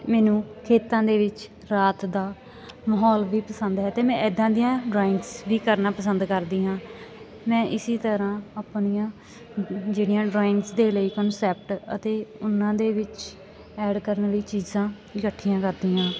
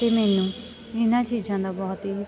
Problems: none marked